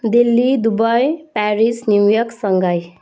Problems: none marked